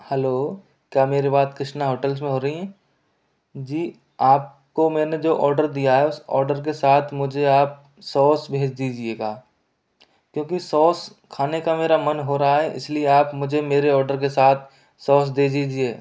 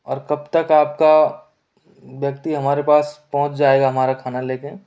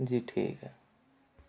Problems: none marked